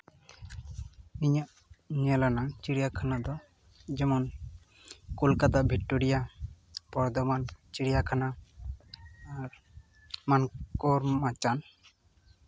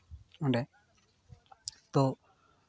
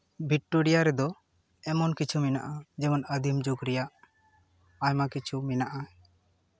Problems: background sounds at intervals